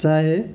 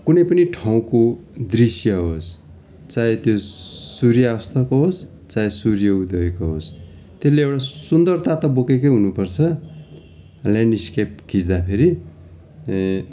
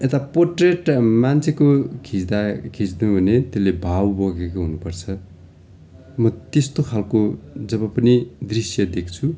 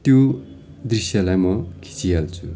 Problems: continuous background conversations